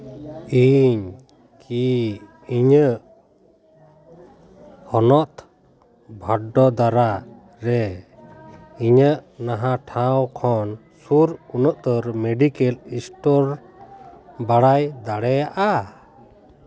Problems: none marked